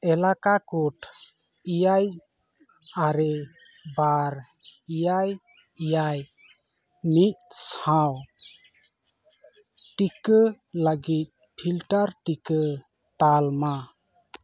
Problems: constant background noise